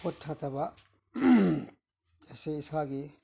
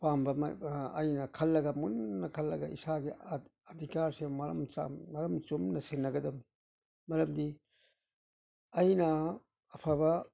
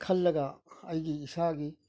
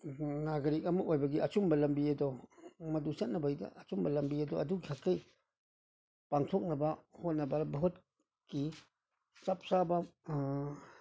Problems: none marked